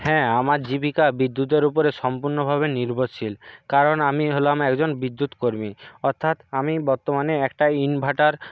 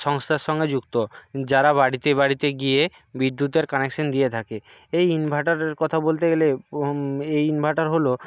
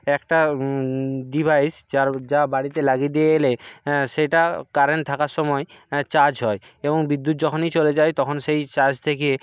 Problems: background sounds at intervals